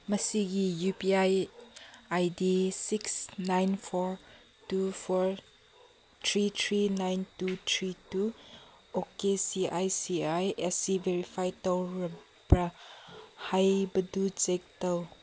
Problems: none marked